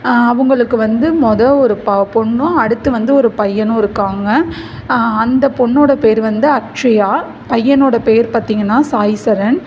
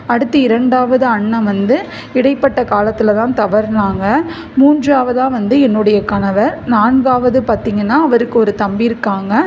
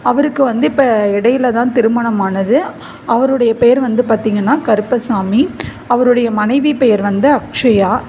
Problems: background conversations at intervals